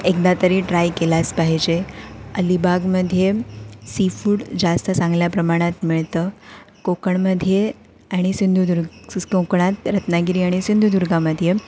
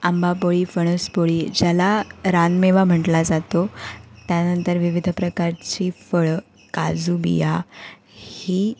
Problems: none marked